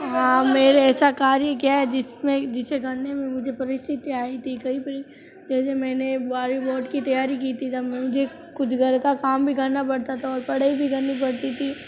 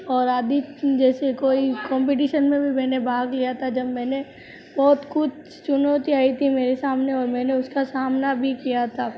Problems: background sounds at intervals, background conversations at intervals